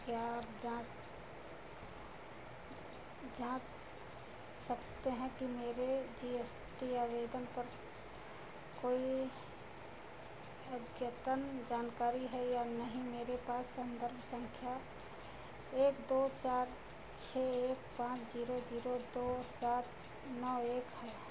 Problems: constant background noise